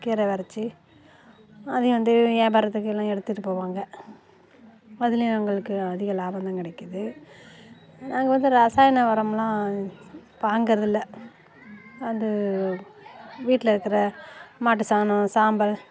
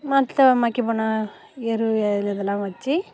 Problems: constant background noise